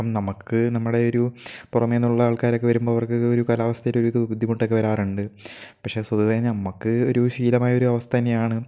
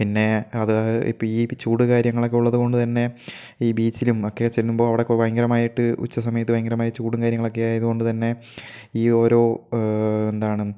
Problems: none marked